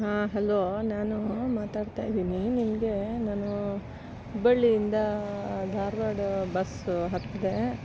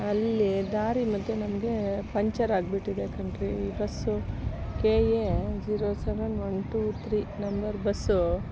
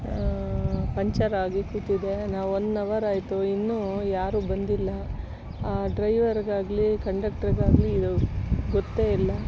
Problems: constant background noise